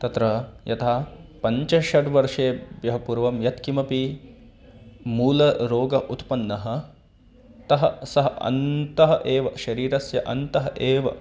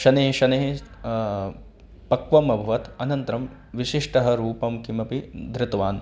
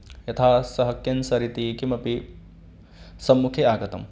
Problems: background sounds at intervals